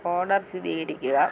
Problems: low volume